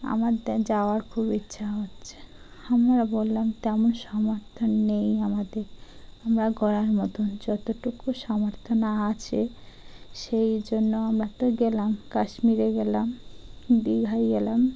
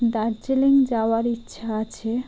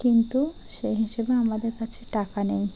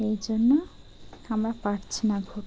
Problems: constant background noise